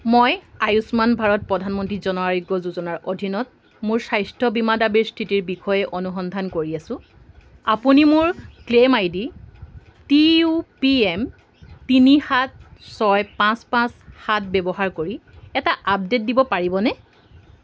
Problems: constant background noise